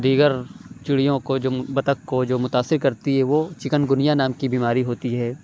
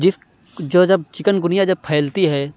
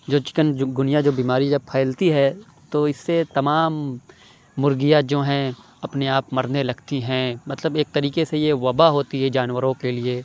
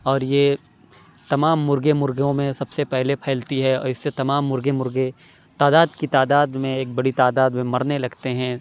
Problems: none marked